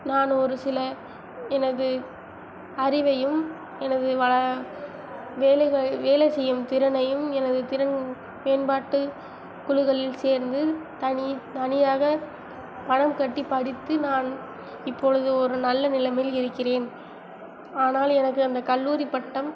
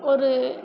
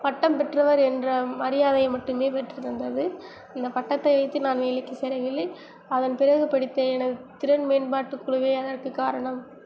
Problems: none marked